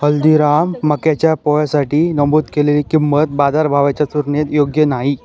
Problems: none marked